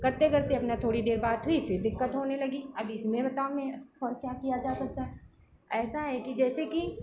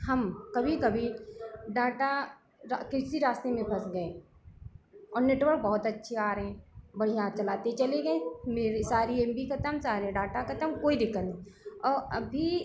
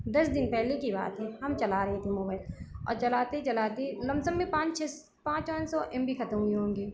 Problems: none marked